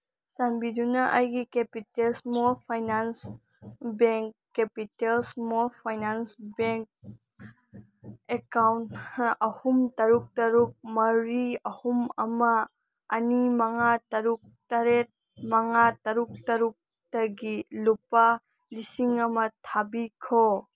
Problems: none marked